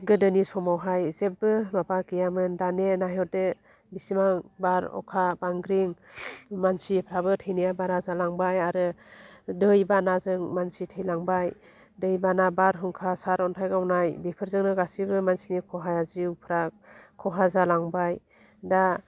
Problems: low volume